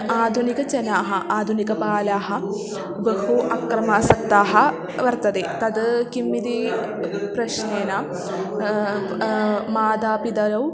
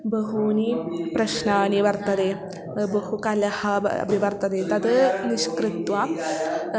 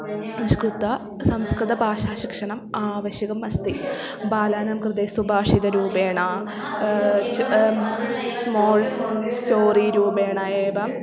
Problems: constant background noise, continuous background conversations